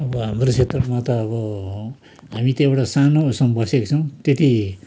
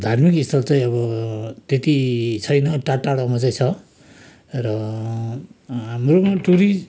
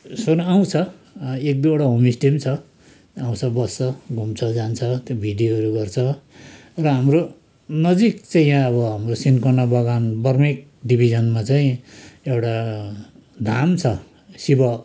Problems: constant background noise